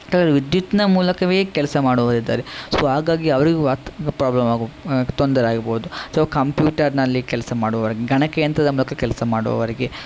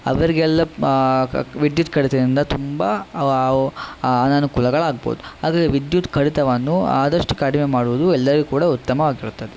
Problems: constant background noise